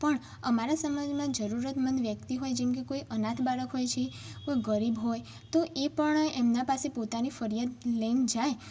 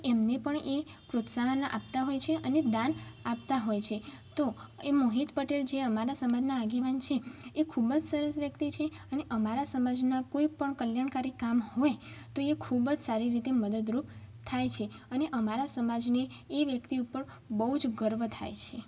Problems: background sounds at intervals